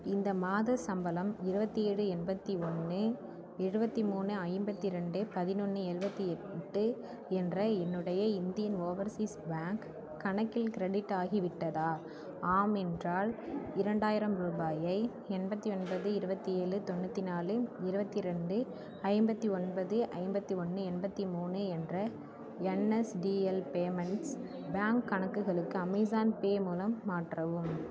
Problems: continuous background conversations